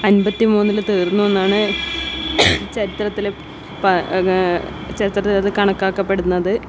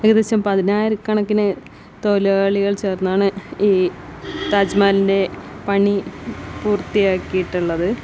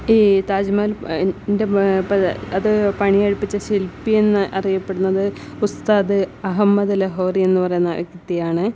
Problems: background sounds at intervals